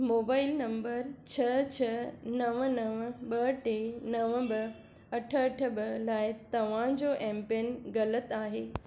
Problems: background sounds at intervals